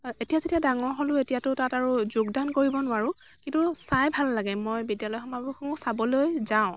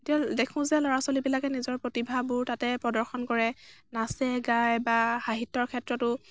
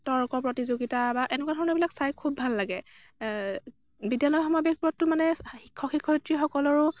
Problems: constant background noise